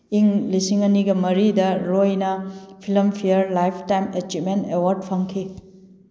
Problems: none marked